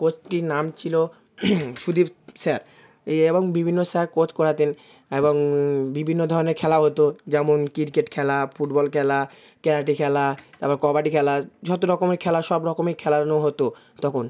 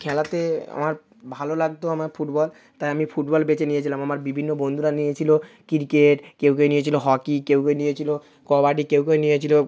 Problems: none marked